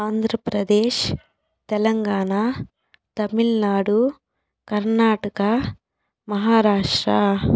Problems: background sounds at intervals